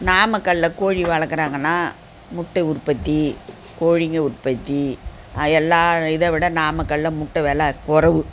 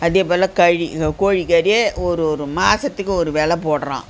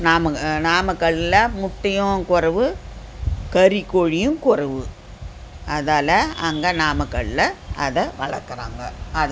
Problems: constant background noise